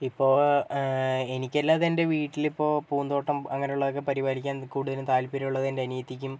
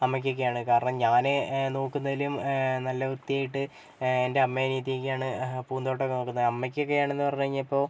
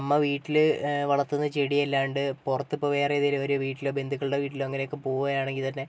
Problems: none marked